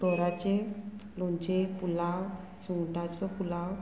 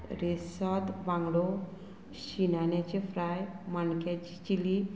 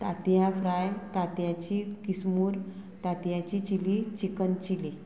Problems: none marked